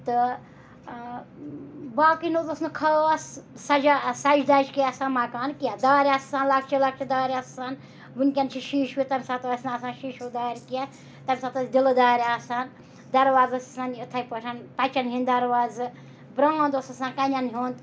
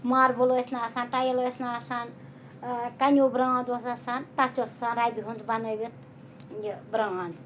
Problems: background sounds at intervals, background conversations at intervals